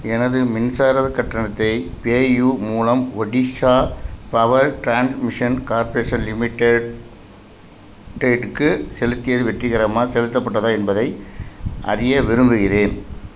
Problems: constant background noise